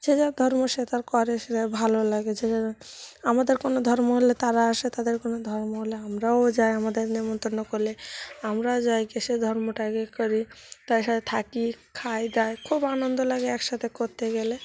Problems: none marked